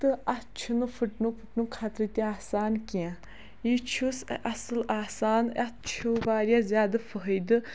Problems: none marked